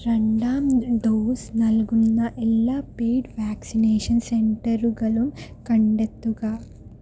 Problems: low volume